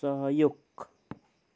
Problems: none marked